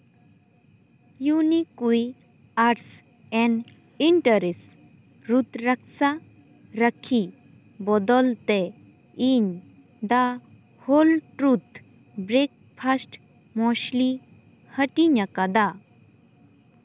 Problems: constant background noise